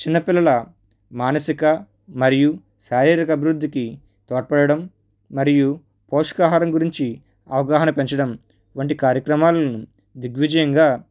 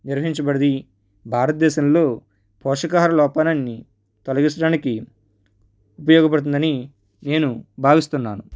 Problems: none marked